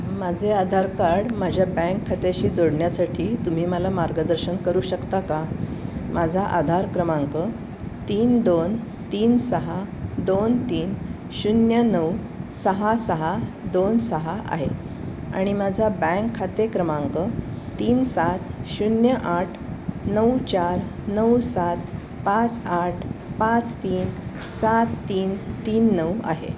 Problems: none marked